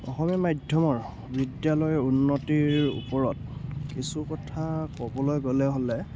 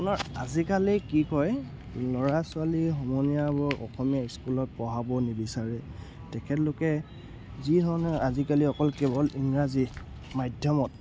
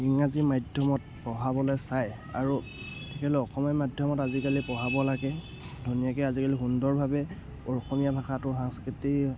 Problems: none marked